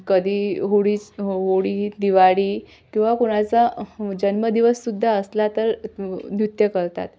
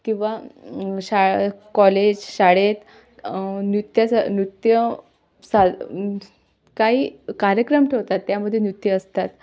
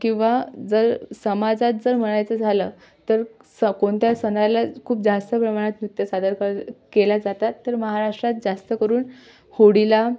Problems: background sounds at intervals